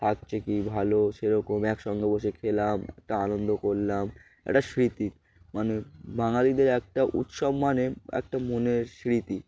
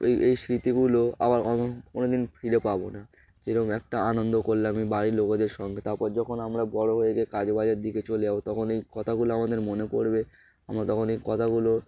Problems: background sounds at intervals